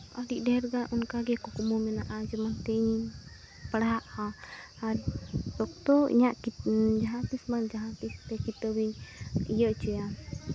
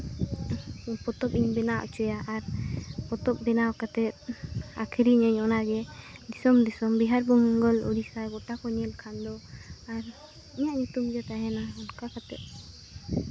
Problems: constant background noise, background conversations at intervals